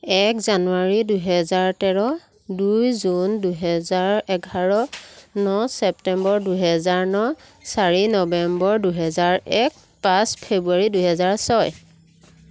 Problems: background sounds at intervals